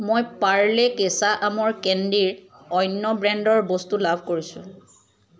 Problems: none marked